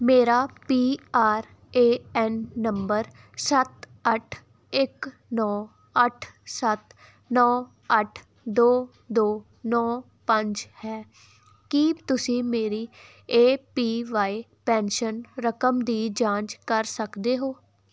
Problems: background sounds at intervals